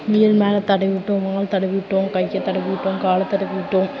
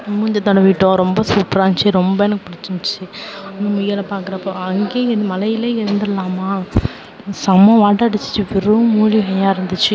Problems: none marked